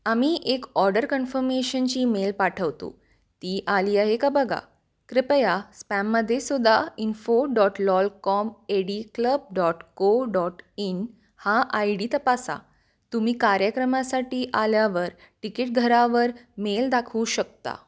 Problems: none marked